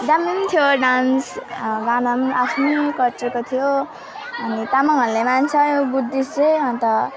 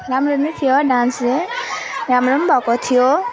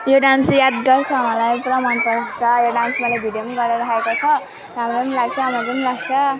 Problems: constant background noise, continuous background conversations